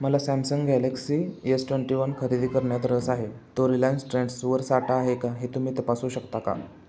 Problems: none marked